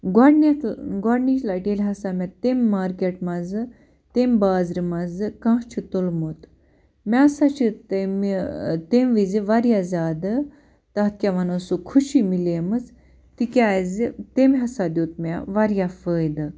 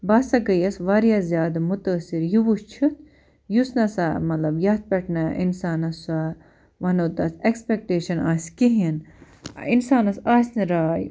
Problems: constant background noise